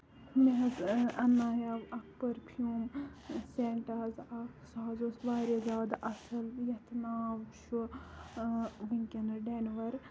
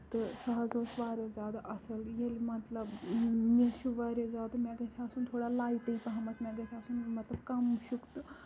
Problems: constant background noise, low volume